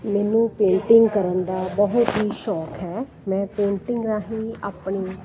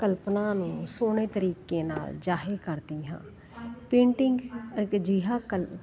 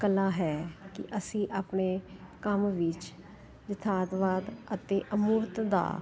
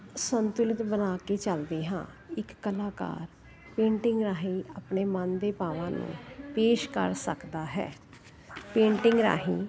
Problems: continuous background conversations